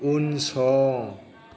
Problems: background sounds at intervals